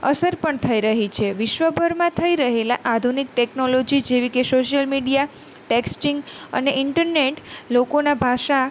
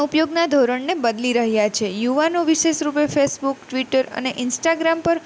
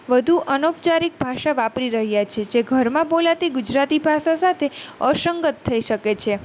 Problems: none marked